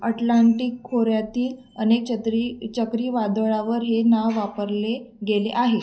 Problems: constant background noise